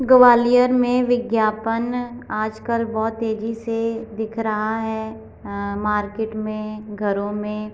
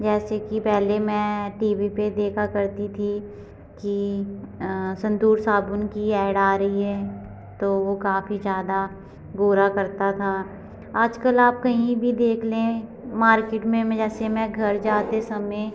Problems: none marked